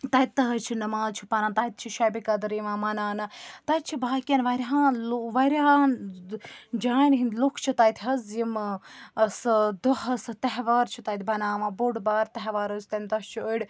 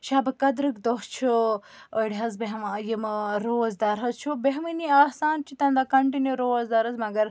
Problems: none marked